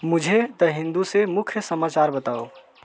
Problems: constant background noise, continuous background conversations